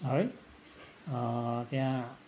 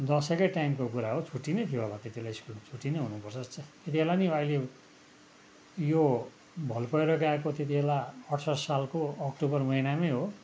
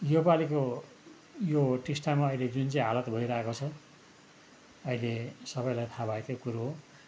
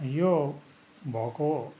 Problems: background sounds at intervals